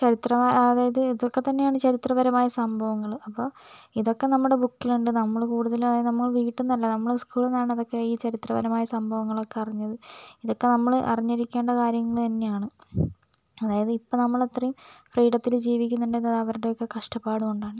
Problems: none marked